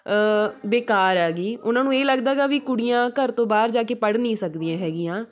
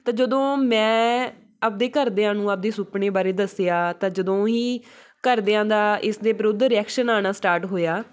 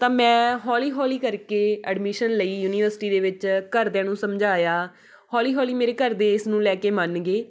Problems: none marked